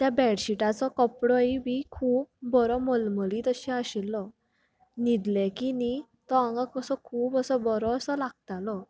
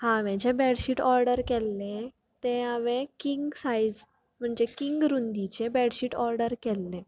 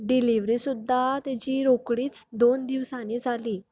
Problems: none marked